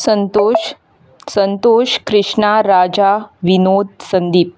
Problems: none marked